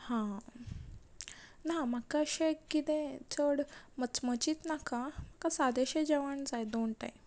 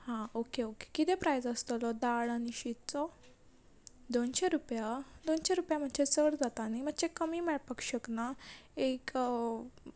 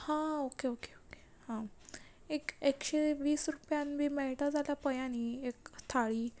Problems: background sounds at intervals